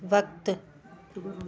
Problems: constant background noise